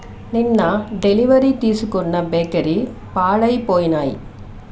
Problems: constant background noise